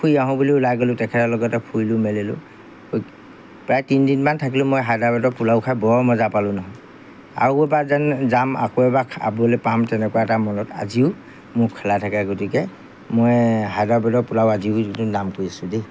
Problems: background sounds at intervals